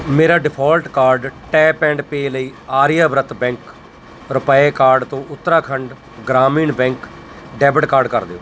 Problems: constant background noise